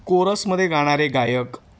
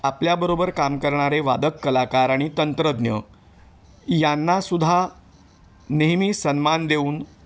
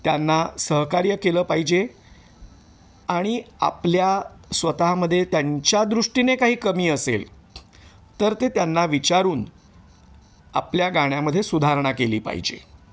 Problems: none marked